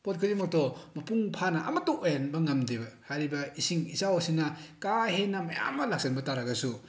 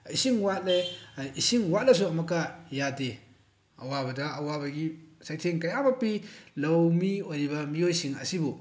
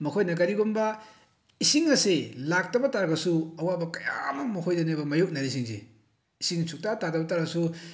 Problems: none marked